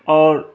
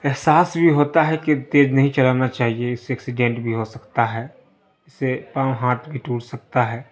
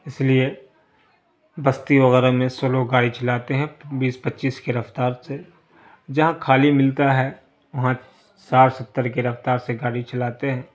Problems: constant background noise